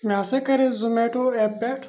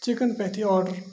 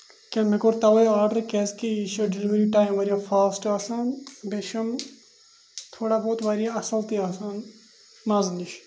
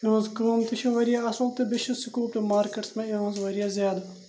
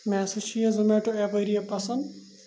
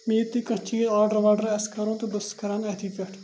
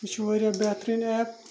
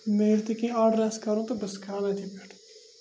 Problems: constant background noise